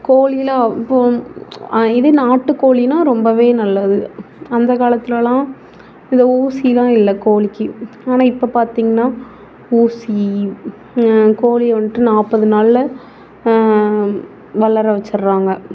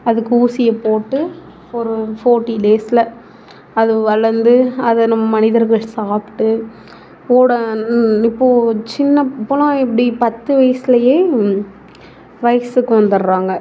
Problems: background sounds at intervals